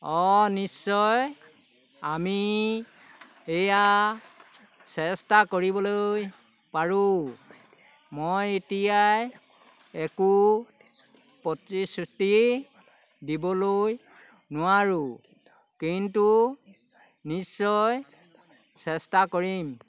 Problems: none marked